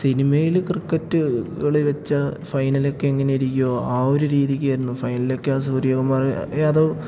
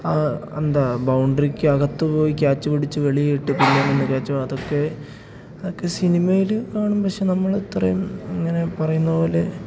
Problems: none marked